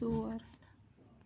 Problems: background sounds at intervals